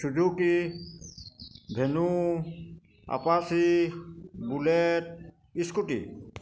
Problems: constant background noise